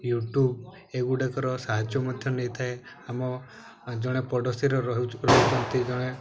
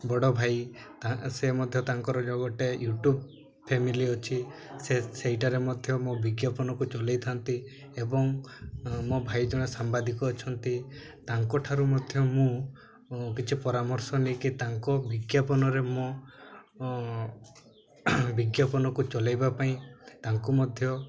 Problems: background sounds at intervals, low volume